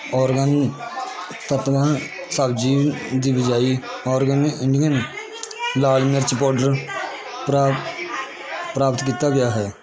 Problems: constant background noise, continuous background conversations